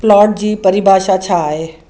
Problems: none marked